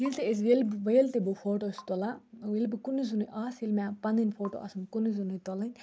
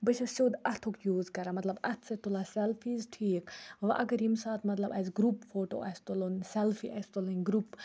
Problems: low volume